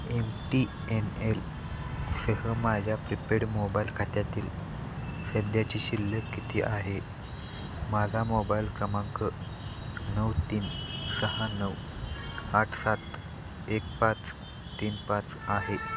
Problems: constant background noise